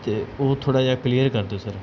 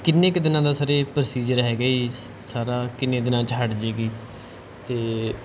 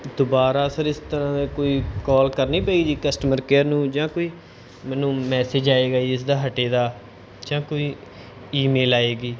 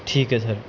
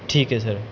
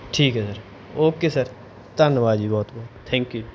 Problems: background sounds at intervals